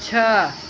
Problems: constant background noise